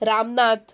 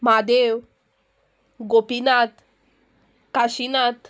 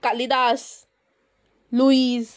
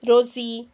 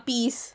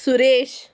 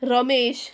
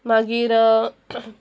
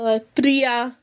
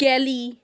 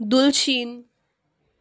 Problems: none marked